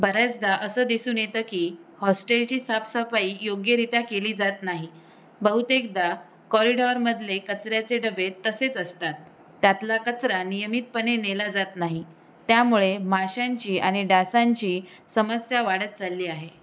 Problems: constant background noise